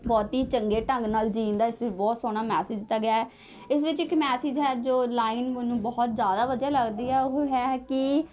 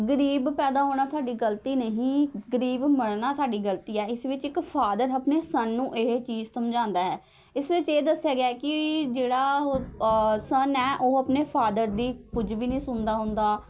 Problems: background sounds at intervals, continuous background conversations